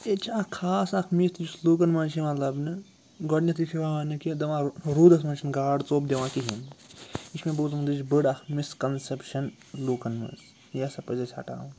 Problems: background sounds at intervals